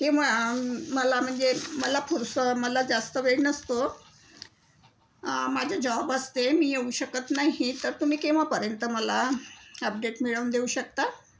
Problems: none marked